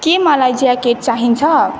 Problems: constant background noise